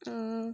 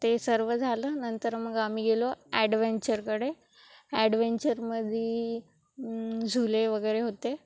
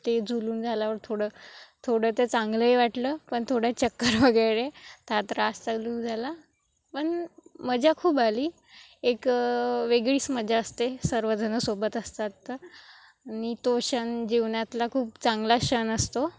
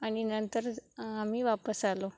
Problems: constant background noise